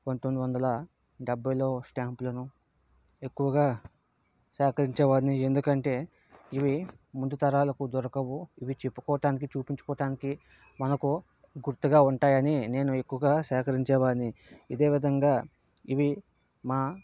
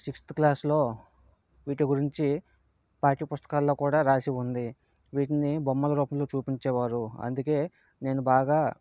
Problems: none marked